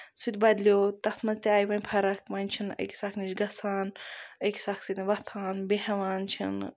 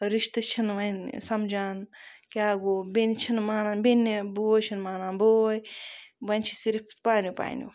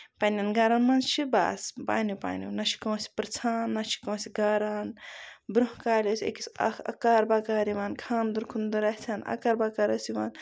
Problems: none marked